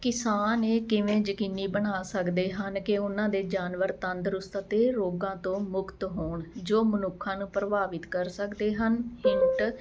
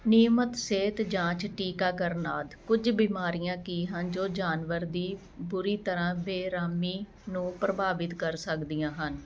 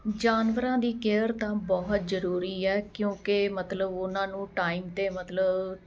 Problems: none marked